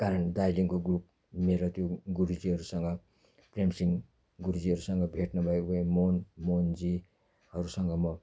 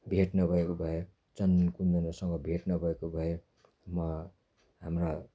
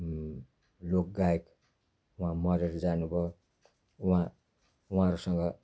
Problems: none marked